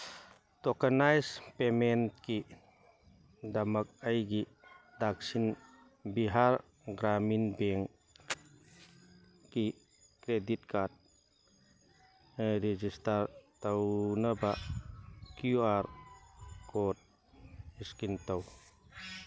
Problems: background sounds at intervals